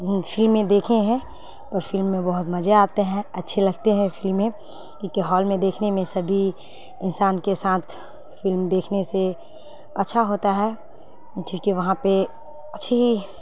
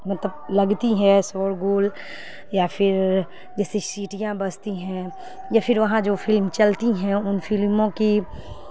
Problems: constant background noise